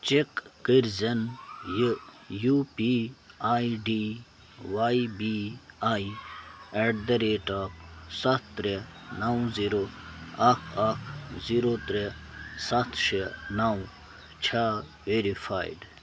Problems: constant background noise